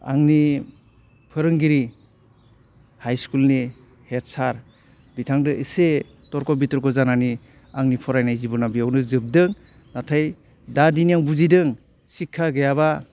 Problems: constant background noise